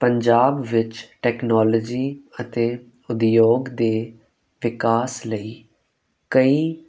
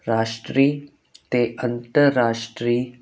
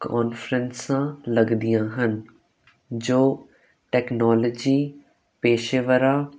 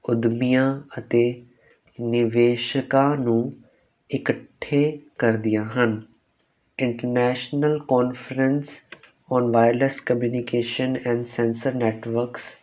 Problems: none marked